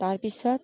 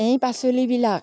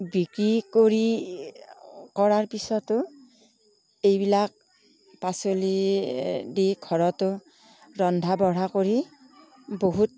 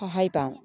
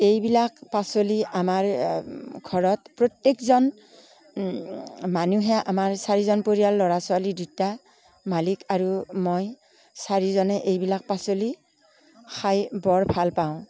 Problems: background conversations at intervals